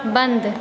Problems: constant background noise